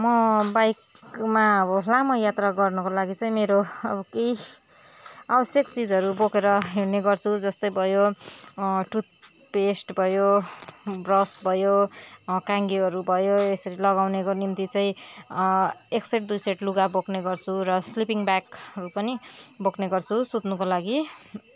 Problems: background sounds at intervals